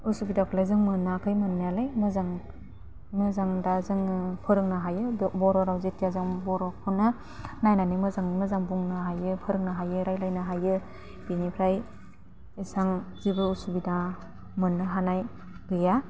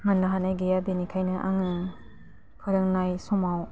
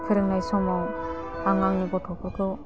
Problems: constant background noise